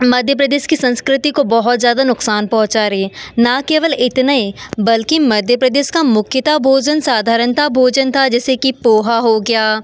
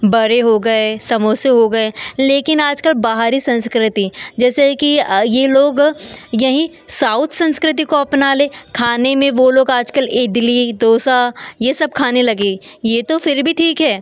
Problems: none marked